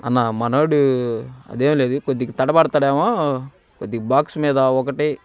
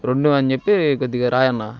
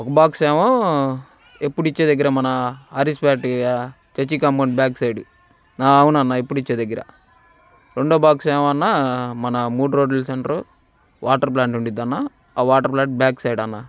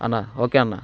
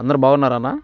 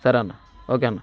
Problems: constant background noise